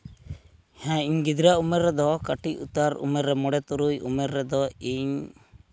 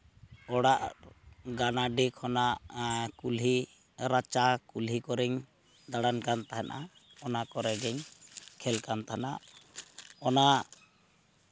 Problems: background sounds at intervals